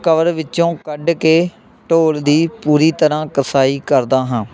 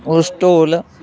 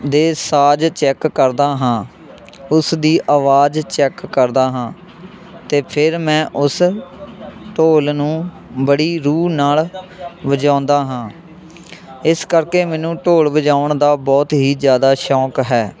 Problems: continuous background conversations